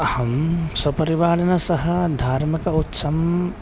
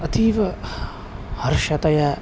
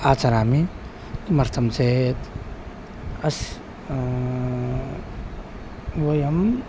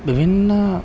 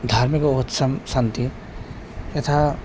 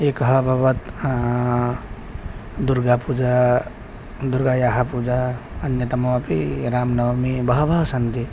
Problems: background sounds at intervals